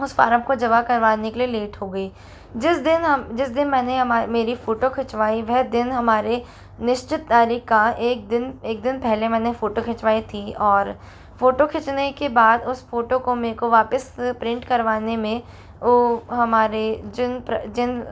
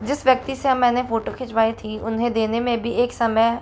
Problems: constant background noise